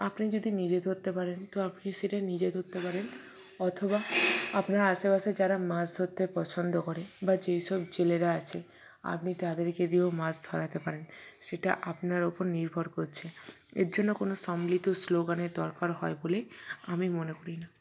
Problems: background sounds at intervals